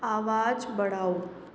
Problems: constant background noise